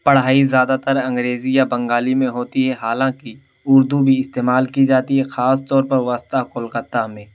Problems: constant background noise